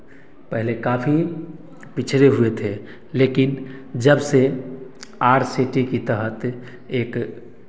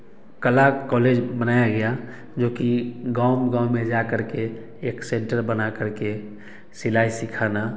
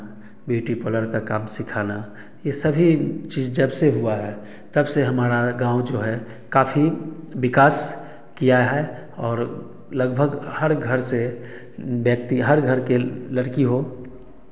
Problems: background sounds at intervals, background conversations at intervals, echo